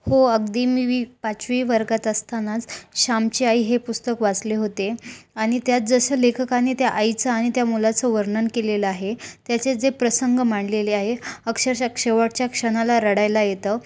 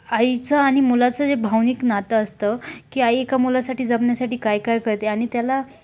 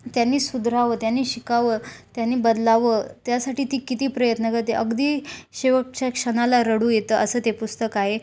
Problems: background sounds at intervals